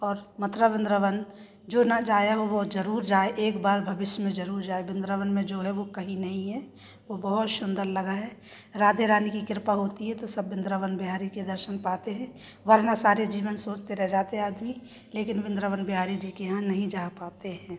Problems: constant background noise, background conversations at intervals